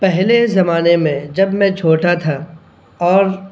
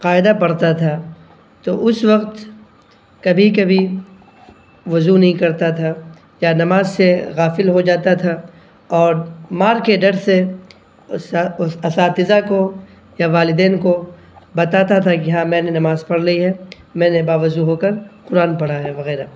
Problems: none marked